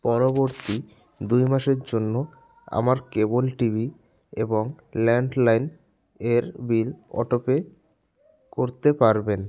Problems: none marked